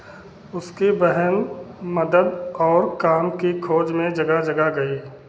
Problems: constant background noise, continuous background conversations